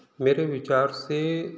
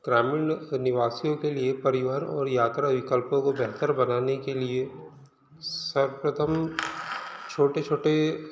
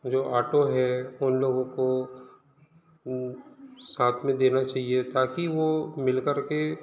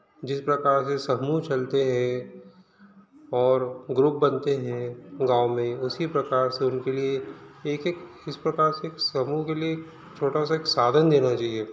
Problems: none marked